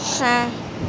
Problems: constant background noise